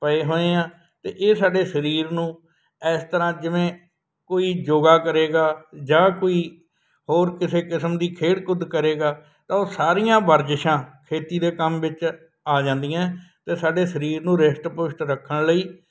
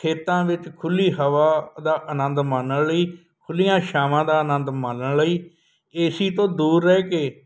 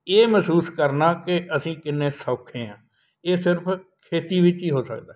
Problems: none marked